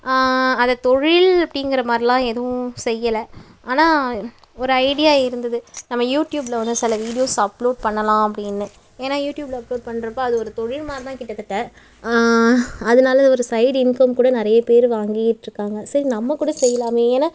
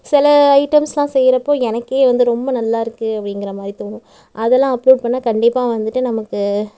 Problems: none marked